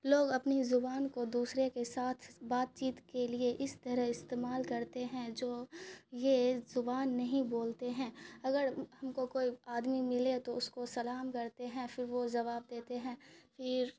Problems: none marked